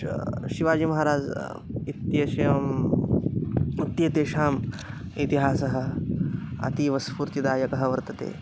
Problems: none marked